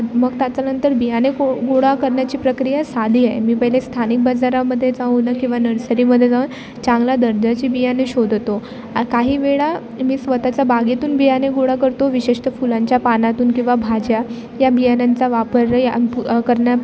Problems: constant background noise, continuous background conversations